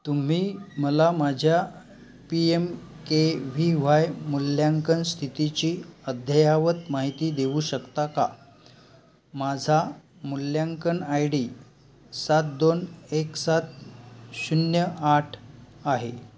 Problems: constant background noise, continuous background conversations